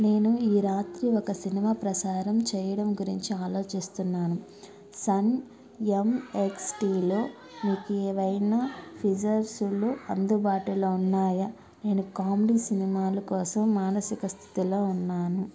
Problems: none marked